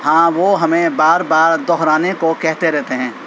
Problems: constant background noise